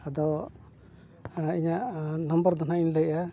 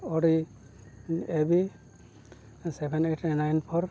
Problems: background sounds at intervals